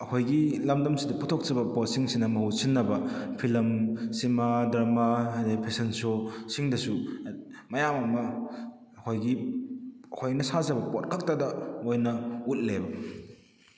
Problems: none marked